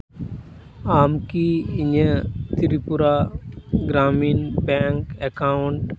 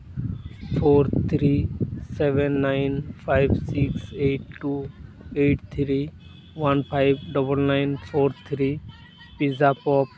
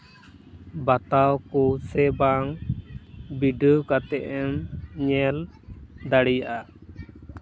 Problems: background sounds at intervals